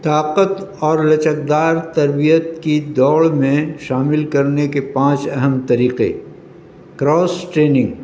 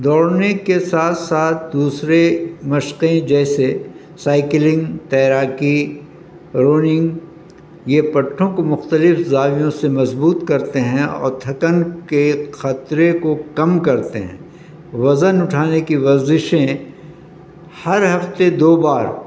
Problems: constant background noise